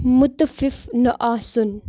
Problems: background sounds at intervals